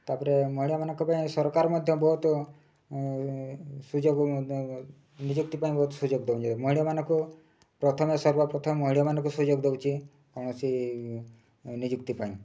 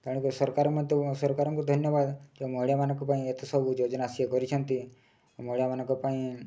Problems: low volume